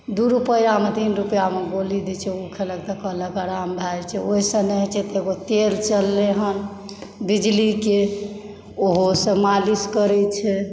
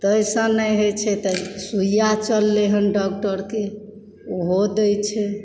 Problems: background sounds at intervals